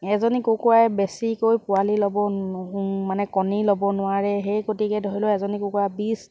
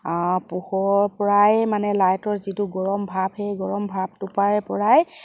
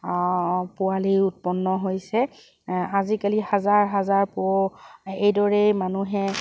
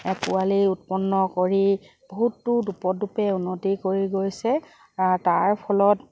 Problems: constant background noise